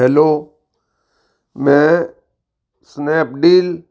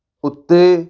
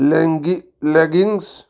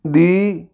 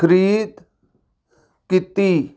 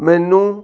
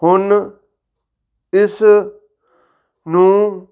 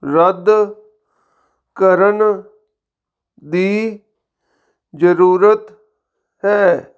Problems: none marked